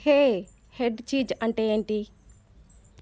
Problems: constant background noise